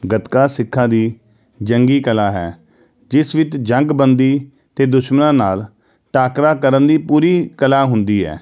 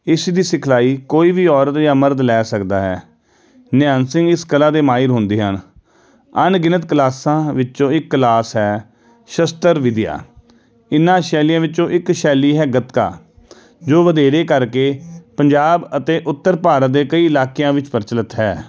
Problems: background sounds at intervals